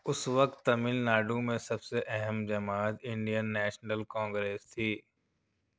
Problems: none marked